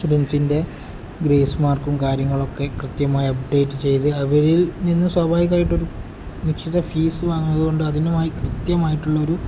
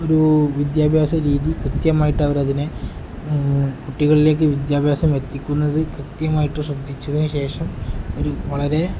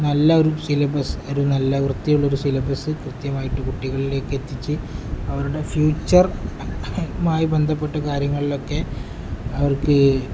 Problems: background sounds at intervals